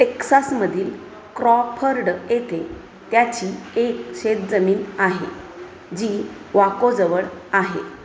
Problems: constant background noise, background conversations at intervals